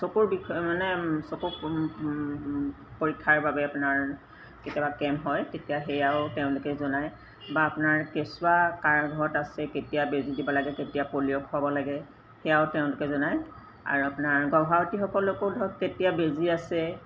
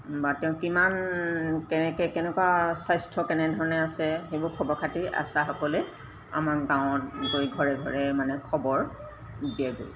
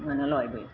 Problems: background sounds at intervals